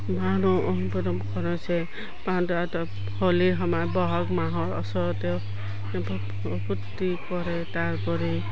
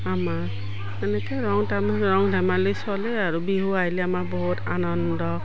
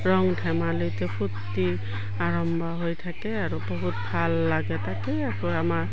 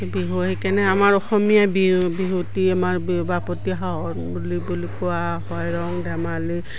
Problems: background sounds at intervals